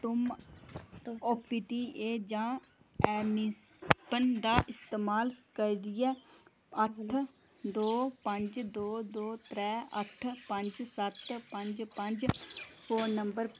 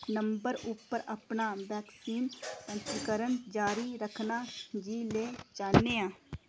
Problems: constant background noise